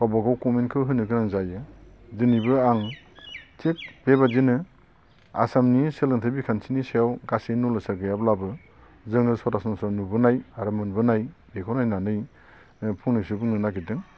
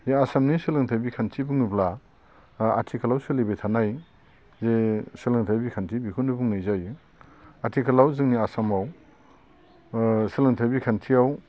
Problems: constant background noise